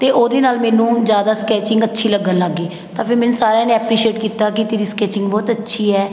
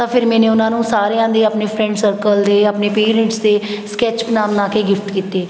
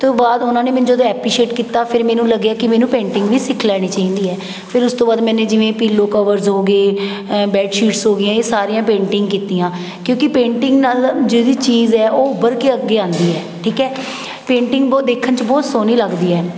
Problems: background sounds at intervals